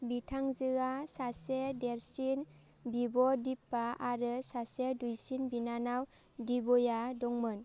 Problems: none marked